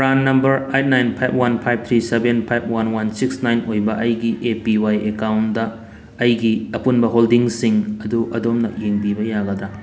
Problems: background sounds at intervals